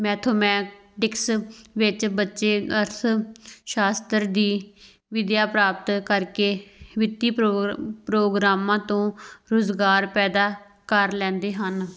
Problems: background sounds at intervals